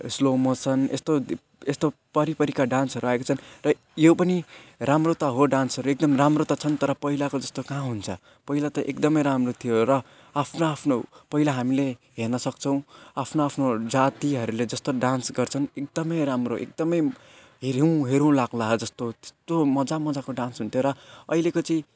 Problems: constant background noise